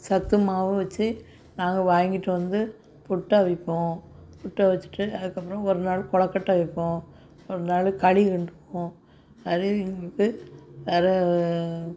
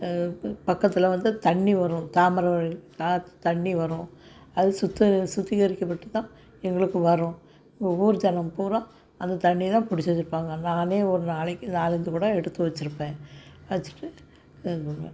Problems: none marked